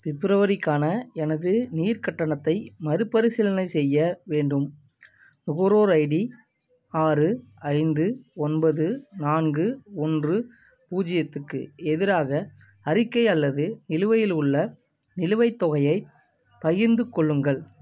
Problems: constant background noise